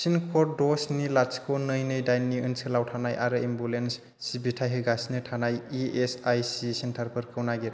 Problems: constant background noise